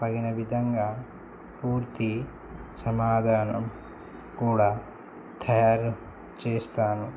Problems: constant background noise